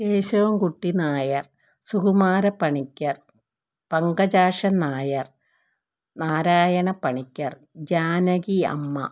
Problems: none marked